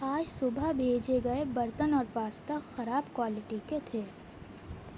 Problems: constant background noise